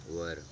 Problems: none marked